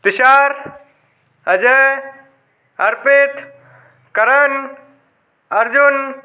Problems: background sounds at intervals